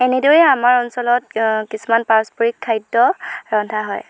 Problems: background sounds at intervals